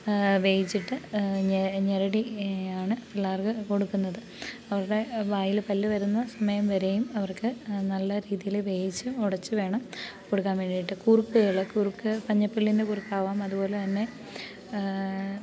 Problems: background sounds at intervals